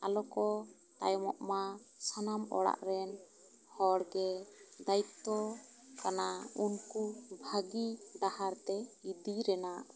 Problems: background sounds at intervals